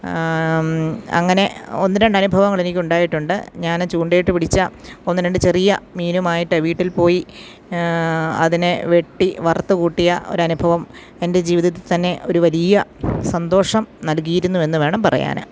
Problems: none marked